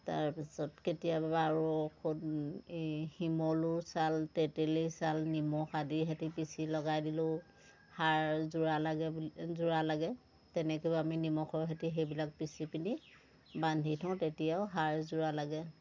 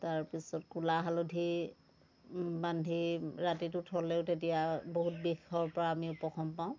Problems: constant background noise